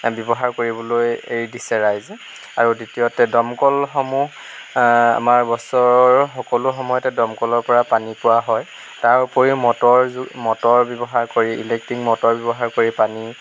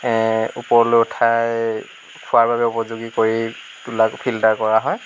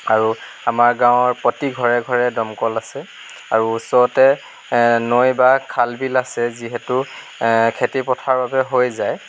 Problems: none marked